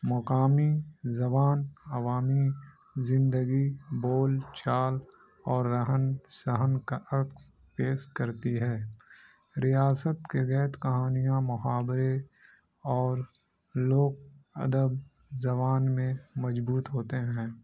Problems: constant background noise